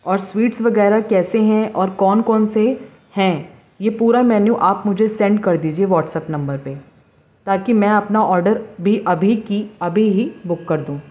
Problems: background sounds at intervals